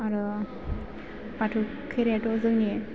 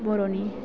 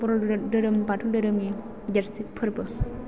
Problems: background conversations at intervals